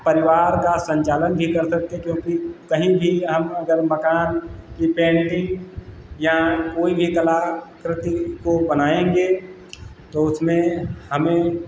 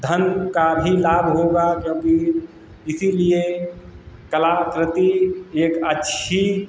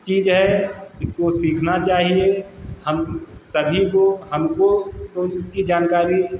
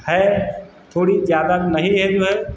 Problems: constant background noise